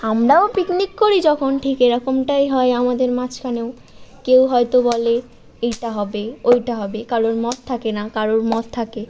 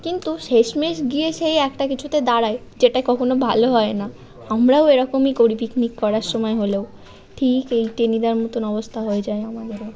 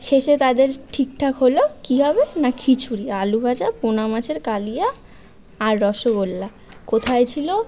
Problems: background sounds at intervals